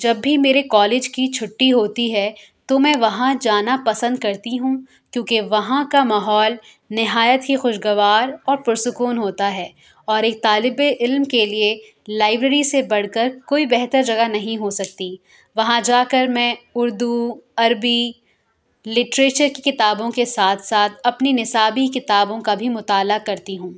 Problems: constant background noise